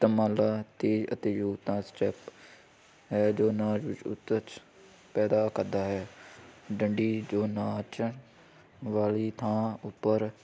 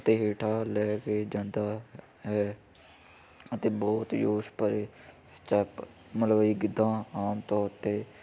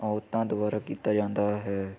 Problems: constant background noise